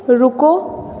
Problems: none marked